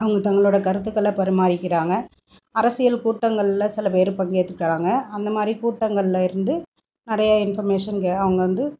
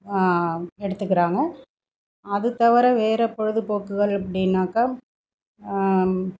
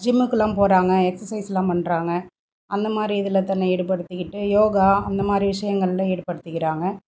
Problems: background sounds at intervals